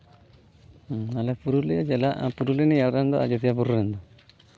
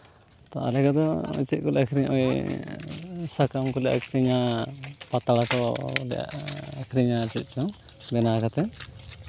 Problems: constant background noise